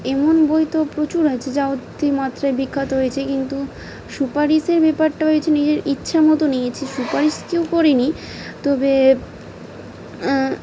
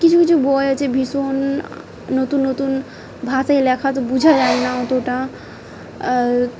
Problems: background sounds at intervals